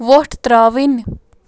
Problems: none marked